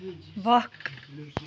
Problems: none marked